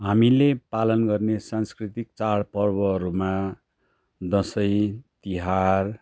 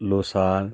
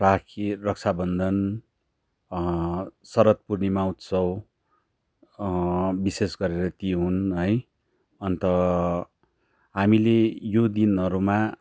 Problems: none marked